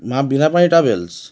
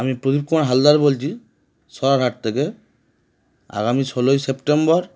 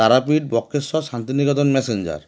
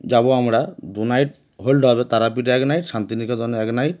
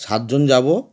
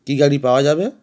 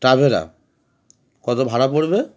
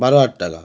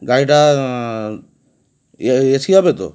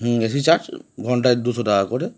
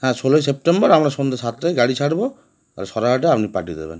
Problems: none marked